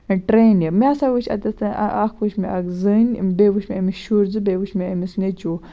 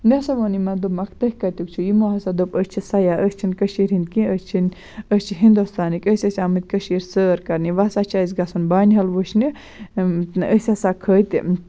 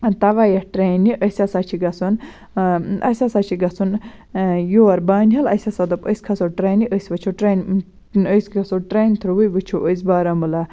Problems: none marked